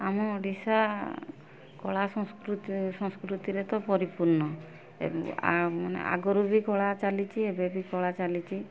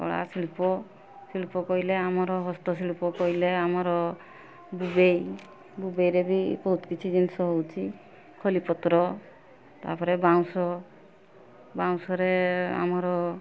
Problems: constant background noise